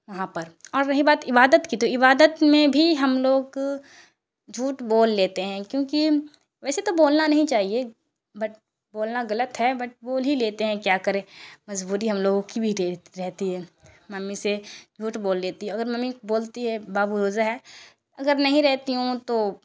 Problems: constant background noise